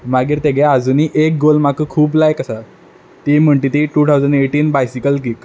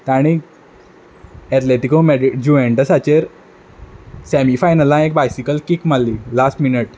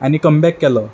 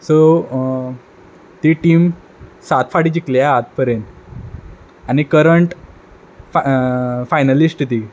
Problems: background sounds at intervals